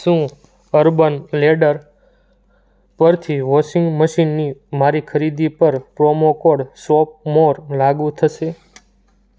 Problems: none marked